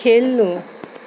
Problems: background sounds at intervals